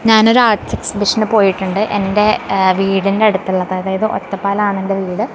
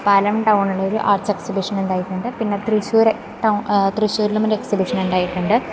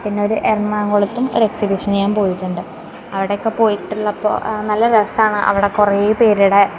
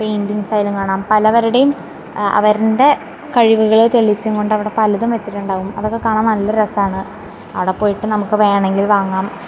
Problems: constant background noise